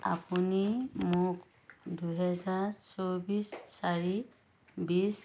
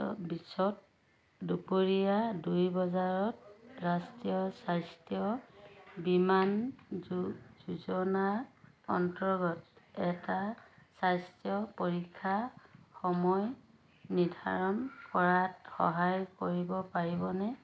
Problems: none marked